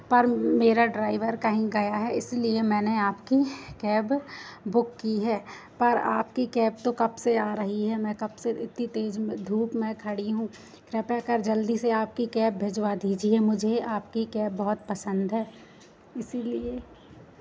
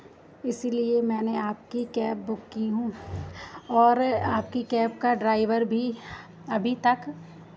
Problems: constant background noise